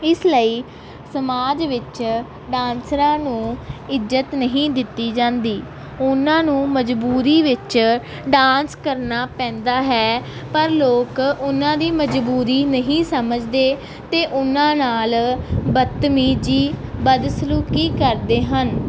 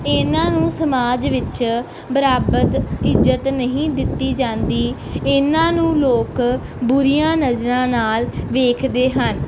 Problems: none marked